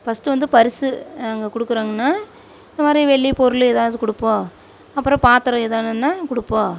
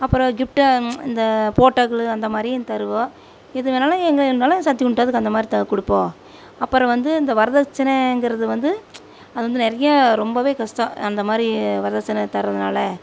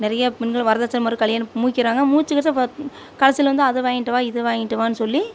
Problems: none marked